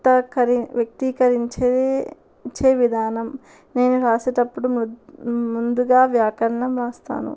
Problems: background sounds at intervals